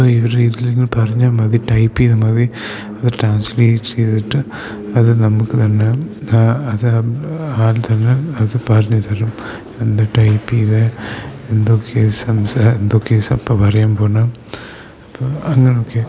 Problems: constant background noise